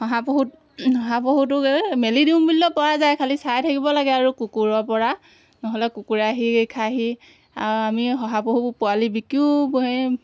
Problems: background sounds at intervals